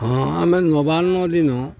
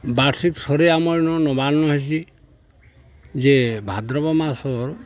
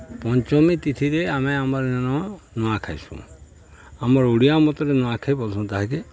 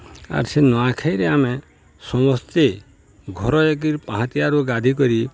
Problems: constant background noise